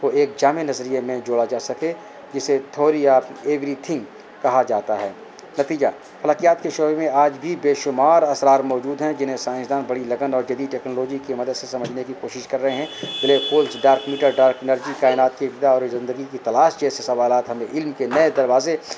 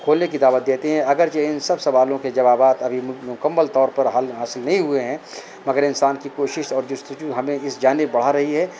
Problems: constant background noise